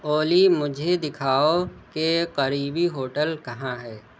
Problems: none marked